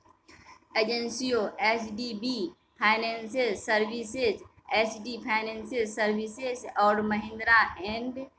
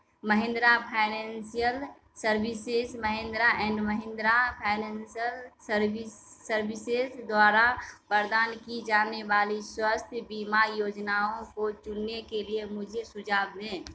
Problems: none marked